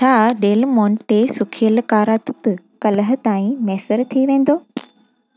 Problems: constant background noise